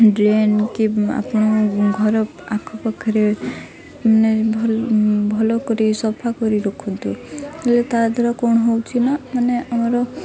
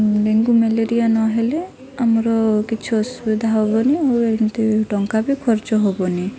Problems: none marked